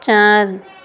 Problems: constant background noise